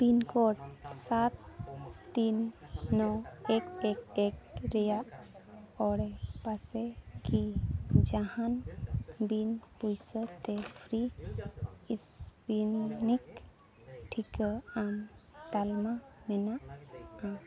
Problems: background sounds at intervals, background conversations at intervals